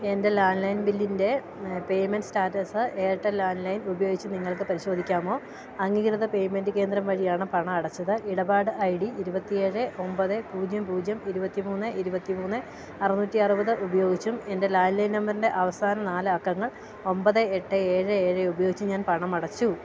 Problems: none marked